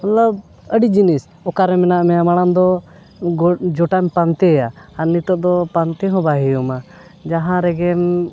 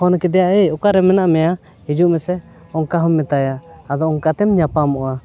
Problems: none marked